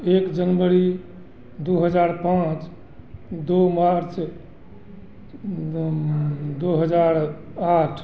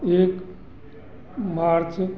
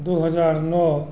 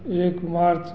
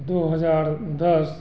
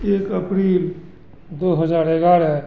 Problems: constant background noise